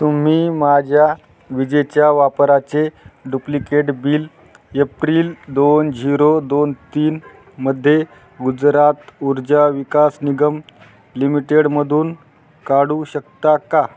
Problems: none marked